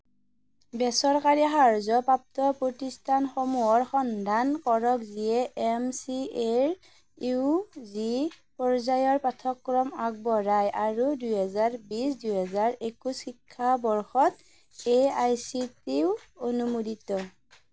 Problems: none marked